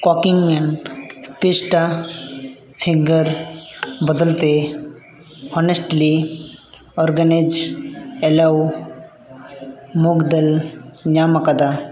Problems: background sounds at intervals